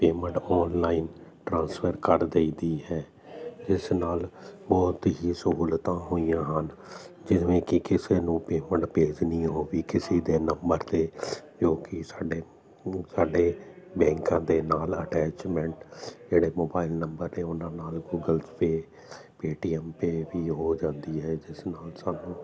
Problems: constant background noise